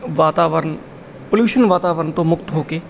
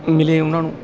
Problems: background sounds at intervals